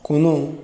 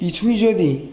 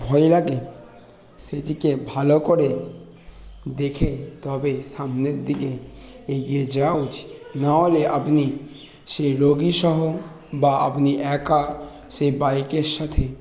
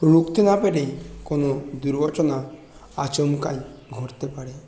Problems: constant background noise, continuous background conversations